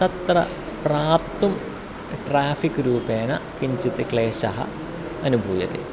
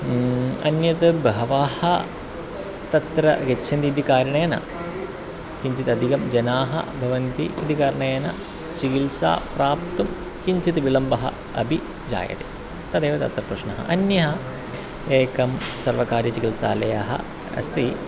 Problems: constant background noise